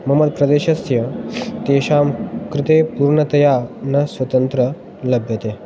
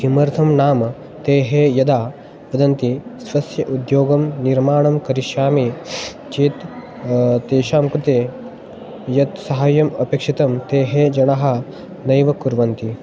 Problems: background sounds at intervals